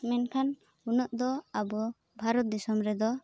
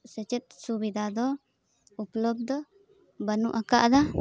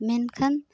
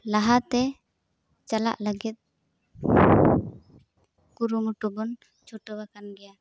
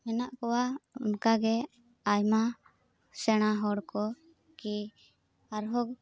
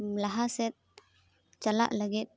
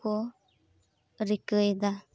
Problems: background sounds at intervals